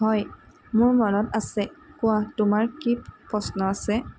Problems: constant background noise